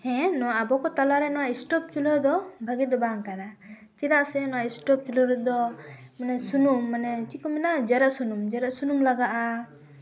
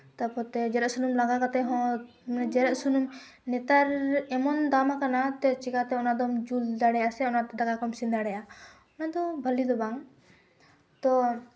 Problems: background sounds at intervals, background conversations at intervals